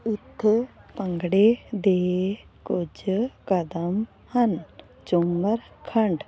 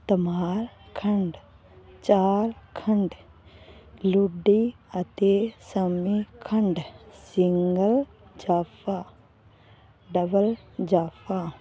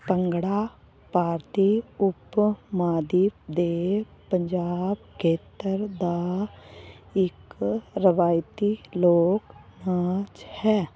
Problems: constant background noise